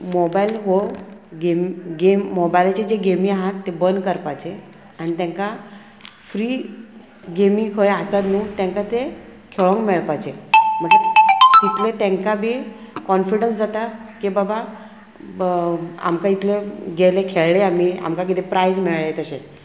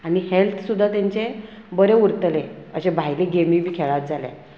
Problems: constant background noise